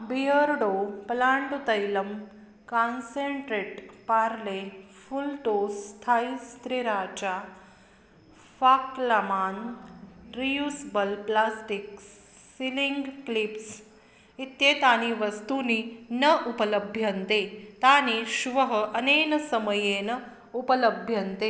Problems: none marked